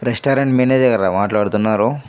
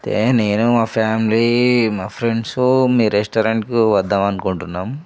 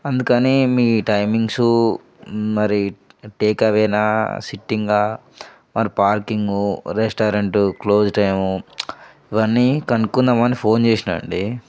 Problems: background sounds at intervals